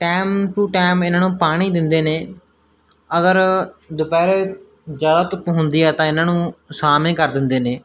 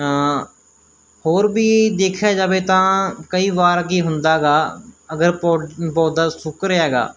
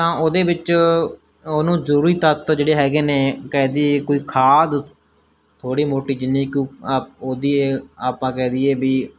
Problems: none marked